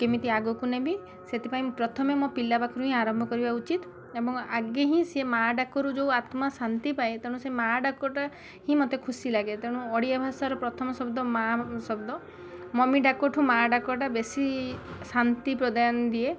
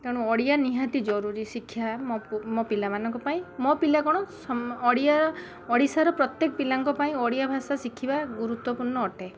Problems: constant background noise